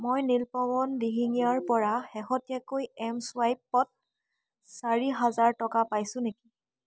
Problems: constant background noise, background conversations at intervals